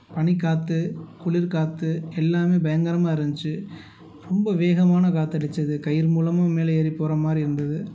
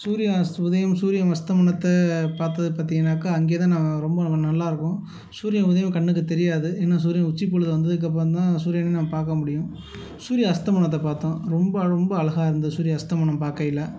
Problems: background sounds at intervals